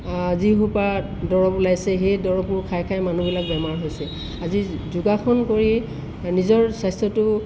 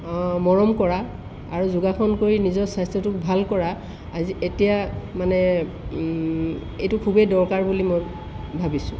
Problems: constant background noise